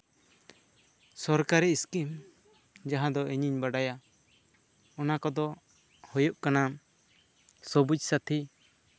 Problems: constant background noise